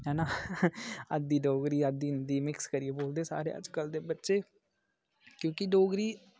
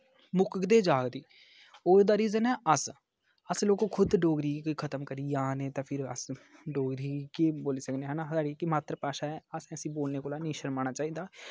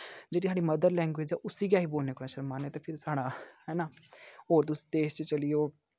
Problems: none marked